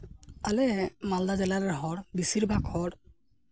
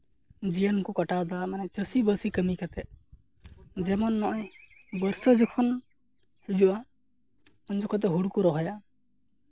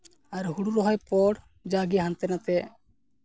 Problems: background sounds at intervals